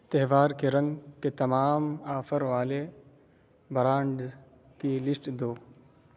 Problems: none marked